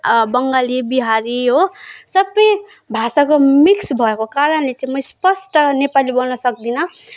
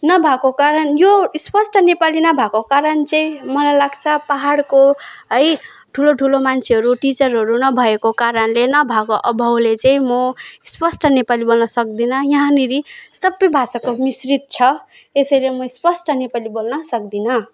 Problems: none marked